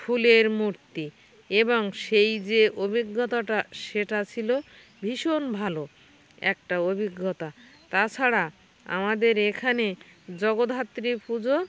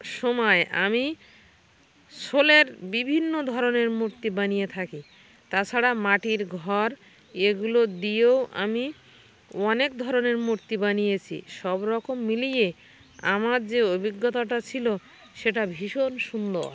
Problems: constant background noise, background conversations at intervals